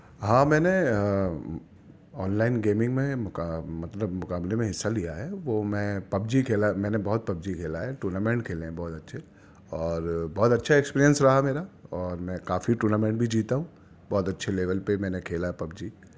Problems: none marked